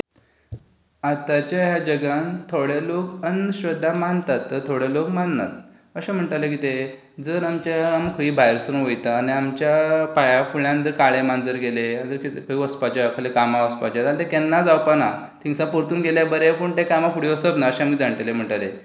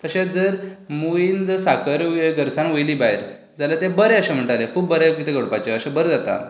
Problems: none marked